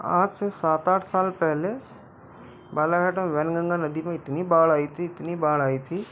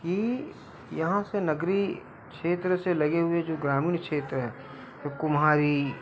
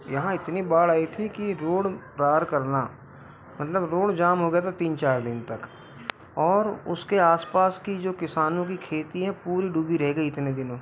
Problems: background sounds at intervals